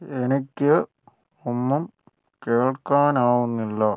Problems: none marked